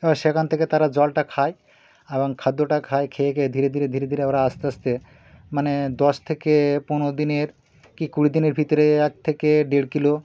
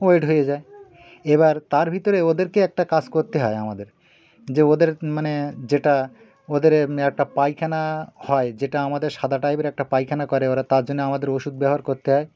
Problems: background sounds at intervals, background conversations at intervals